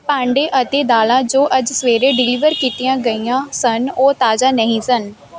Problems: background sounds at intervals